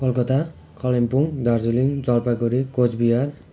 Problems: none marked